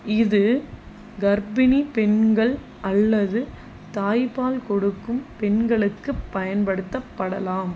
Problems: constant background noise